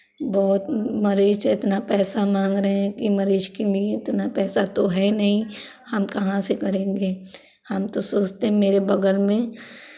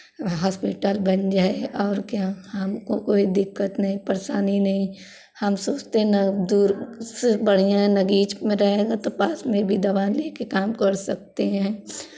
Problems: constant background noise, continuous background conversations